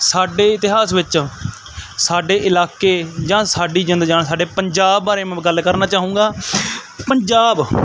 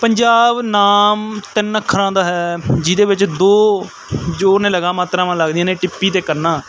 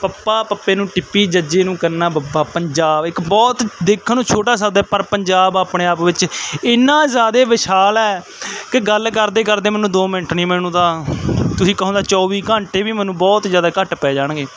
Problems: none marked